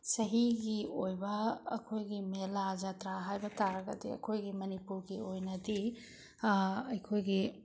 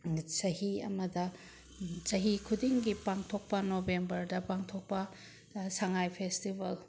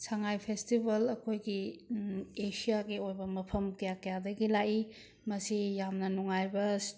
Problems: none marked